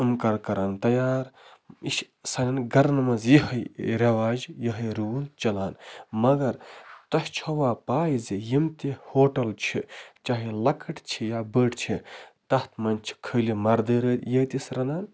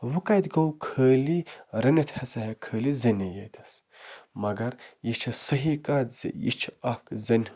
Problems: constant background noise